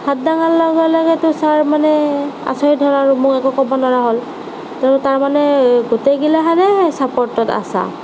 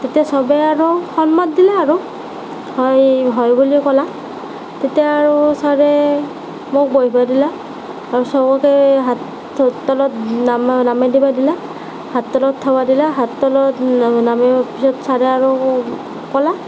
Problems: constant background noise